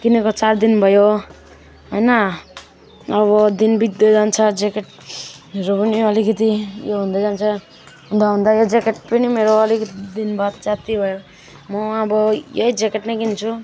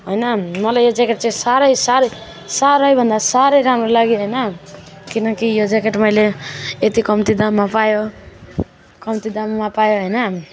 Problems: continuous background conversations